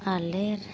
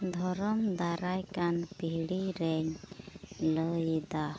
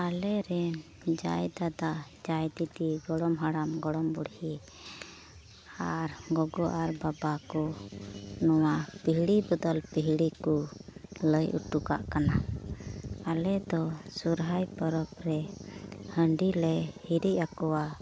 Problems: none marked